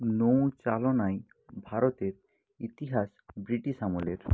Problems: none marked